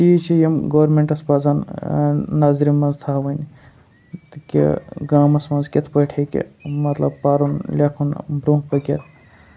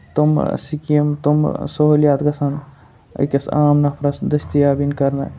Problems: background sounds at intervals